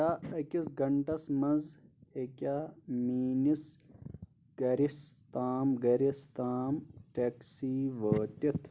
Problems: background sounds at intervals